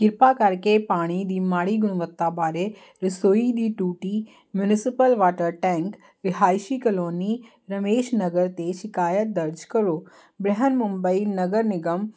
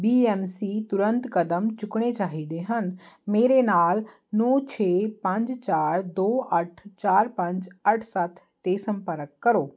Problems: constant background noise